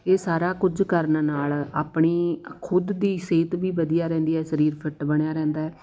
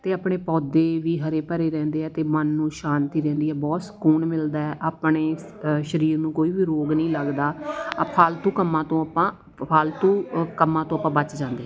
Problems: background conversations at intervals